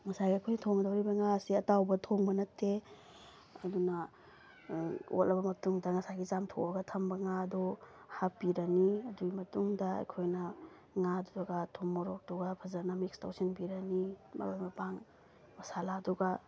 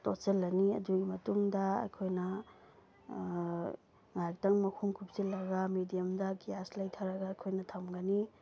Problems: background sounds at intervals